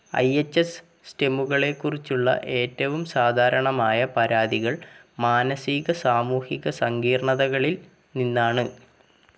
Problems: background sounds at intervals